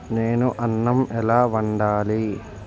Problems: constant background noise